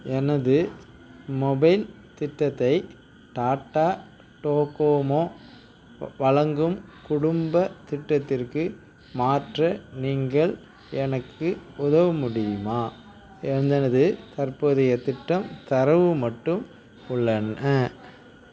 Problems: none marked